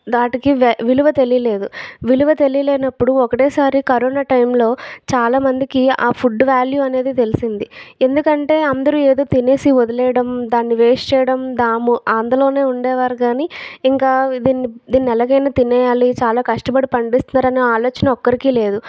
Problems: background sounds at intervals